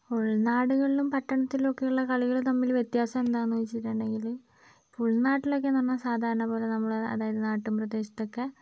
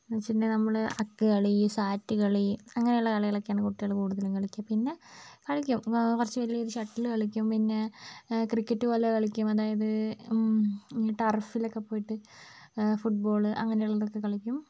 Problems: none marked